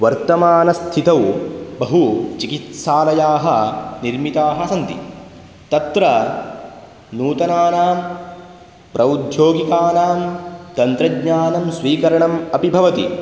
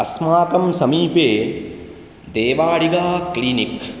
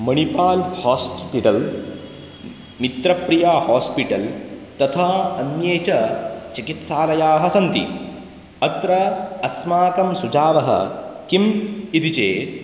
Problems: none marked